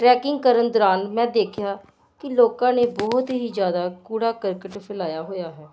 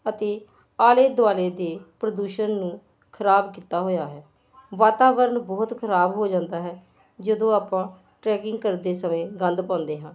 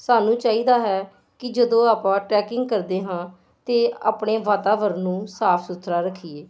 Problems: constant background noise